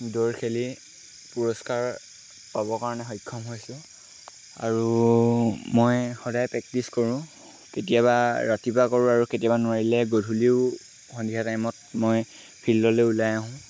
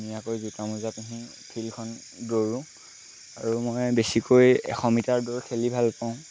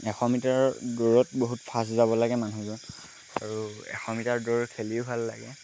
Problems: constant background noise